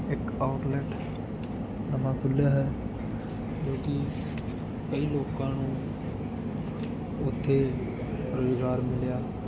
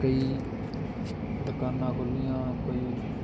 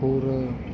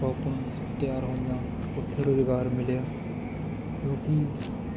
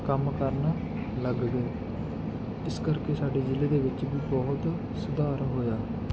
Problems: none marked